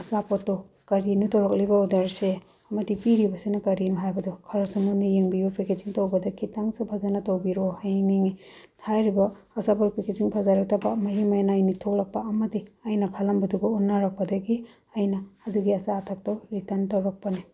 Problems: background sounds at intervals